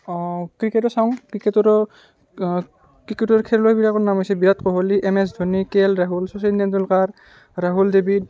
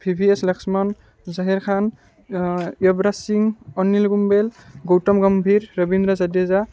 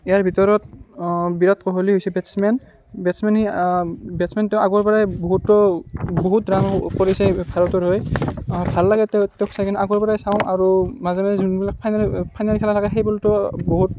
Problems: none marked